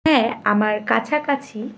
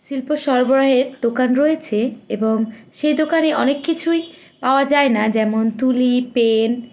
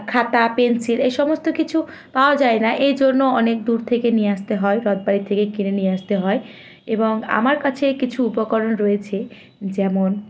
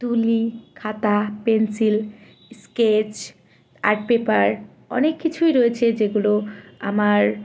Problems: constant background noise